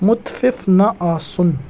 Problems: background sounds at intervals